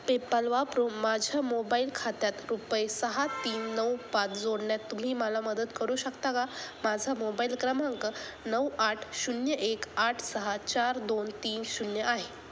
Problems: constant background noise